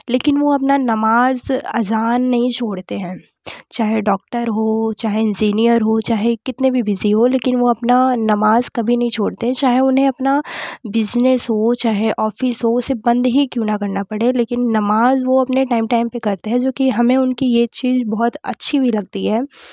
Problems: none marked